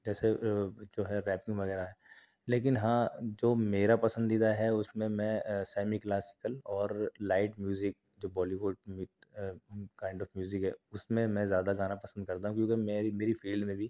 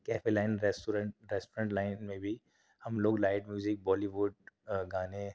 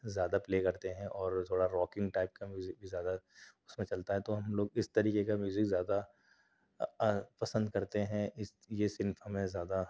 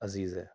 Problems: none marked